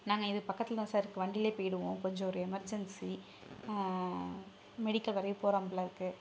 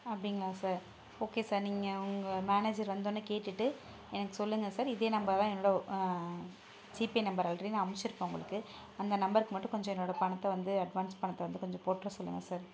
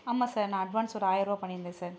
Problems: none marked